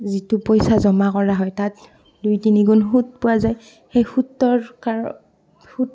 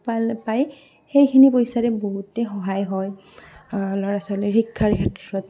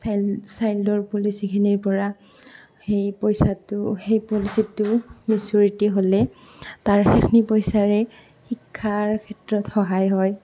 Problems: constant background noise, background conversations at intervals